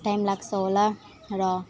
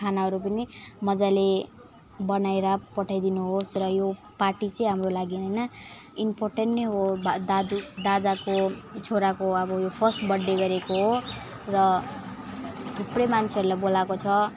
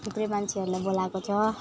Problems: background sounds at intervals